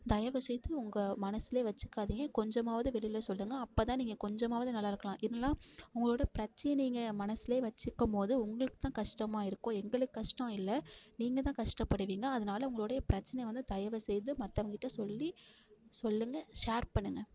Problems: constant background noise